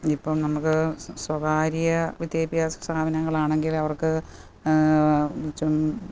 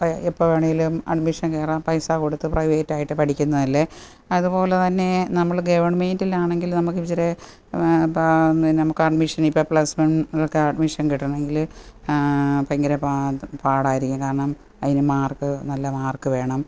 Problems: none marked